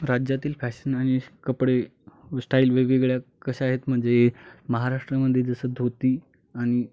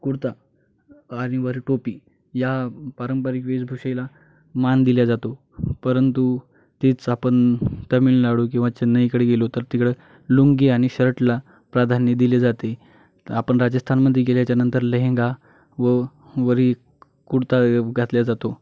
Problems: constant background noise, background conversations at intervals